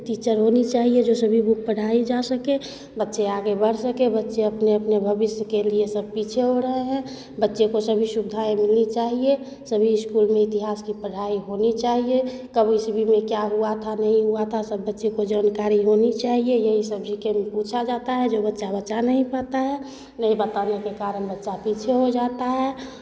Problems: constant background noise, background conversations at intervals